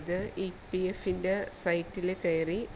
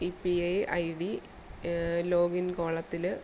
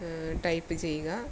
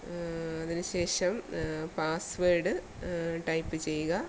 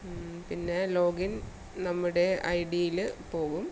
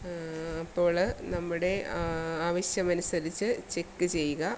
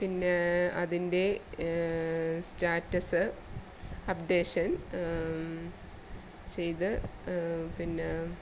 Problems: background sounds at intervals, low volume